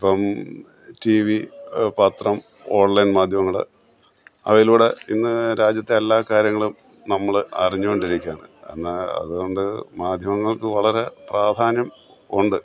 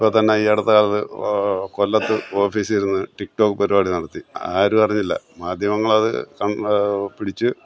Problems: background sounds at intervals